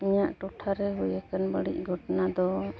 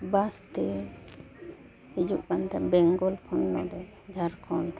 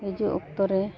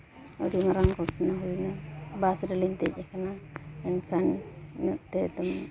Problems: background sounds at intervals, continuous background conversations